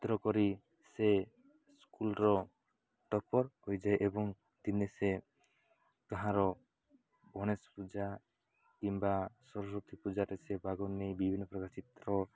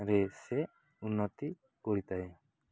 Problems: none marked